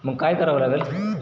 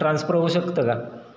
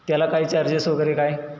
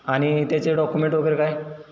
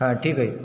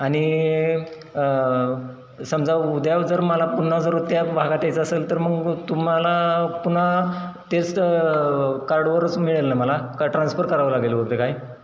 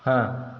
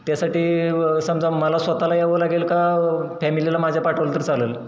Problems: none marked